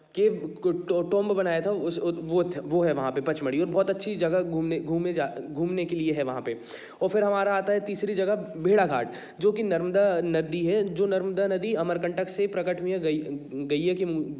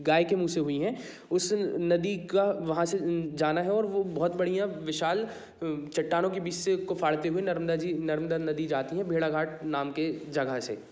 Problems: none marked